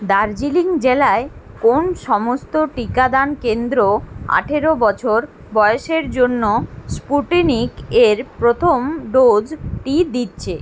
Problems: constant background noise